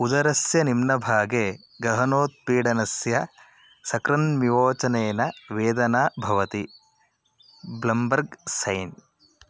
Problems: constant background noise